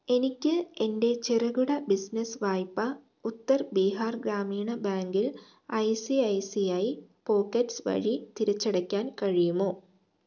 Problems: low volume